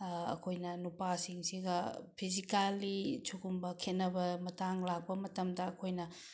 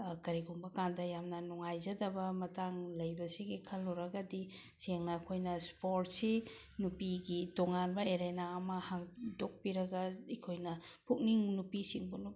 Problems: none marked